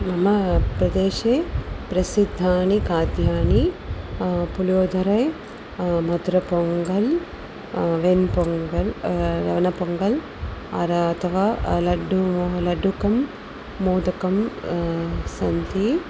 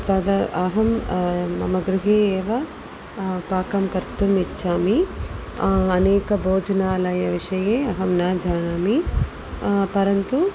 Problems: constant background noise